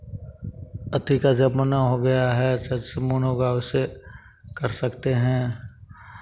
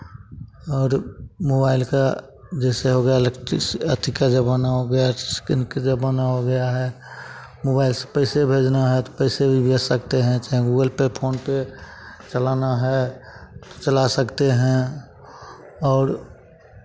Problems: none marked